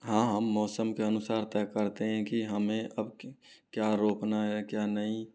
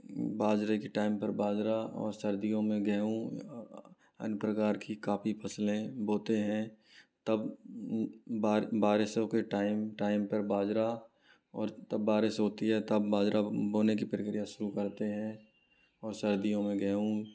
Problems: low volume